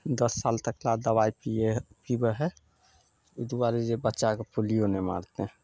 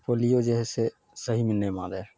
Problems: none marked